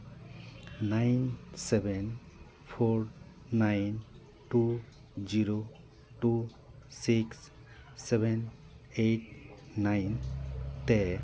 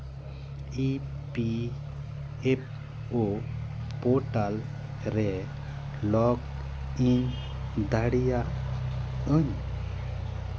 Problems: none marked